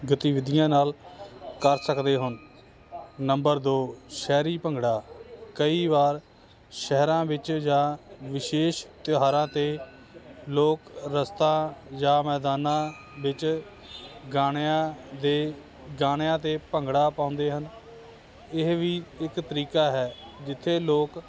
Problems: constant background noise